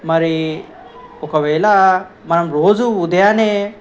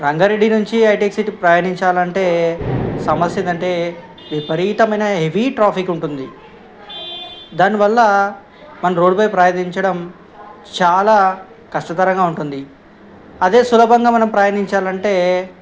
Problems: background sounds at intervals, background conversations at intervals